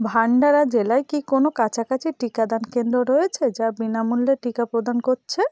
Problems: continuous background conversations